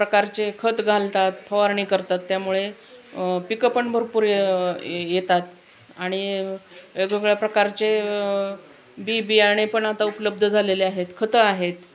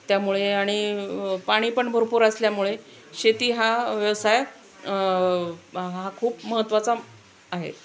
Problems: constant background noise, background conversations at intervals